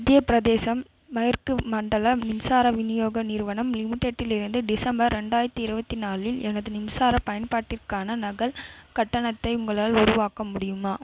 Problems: none marked